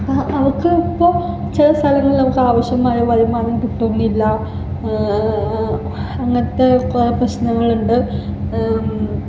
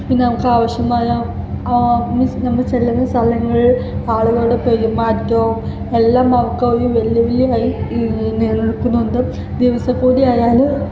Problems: constant background noise, background conversations at intervals